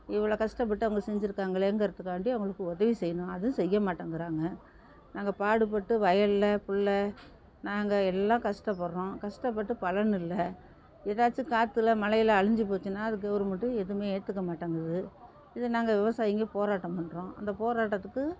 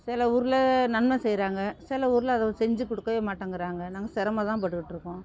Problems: constant background noise